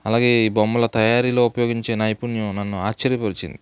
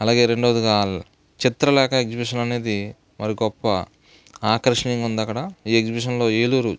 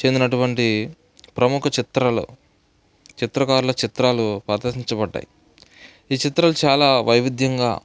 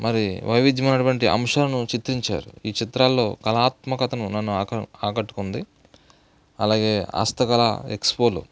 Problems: background sounds at intervals, background conversations at intervals